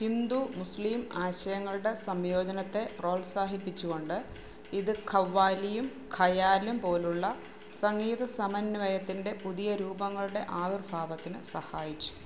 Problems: low volume